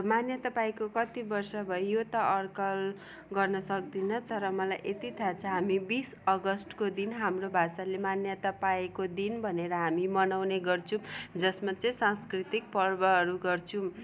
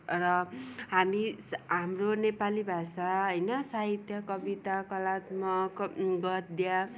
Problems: background sounds at intervals